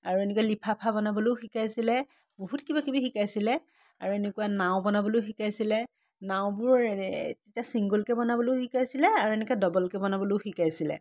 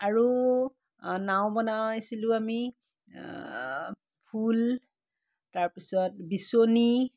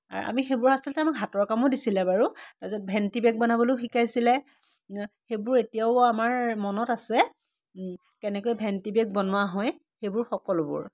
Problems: none marked